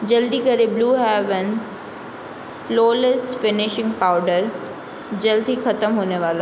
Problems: constant background noise